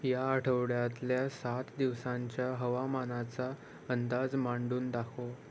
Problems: none marked